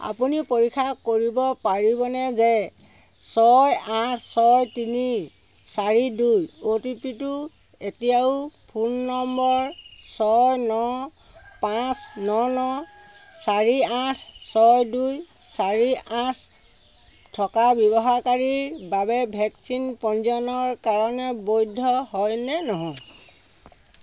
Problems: constant background noise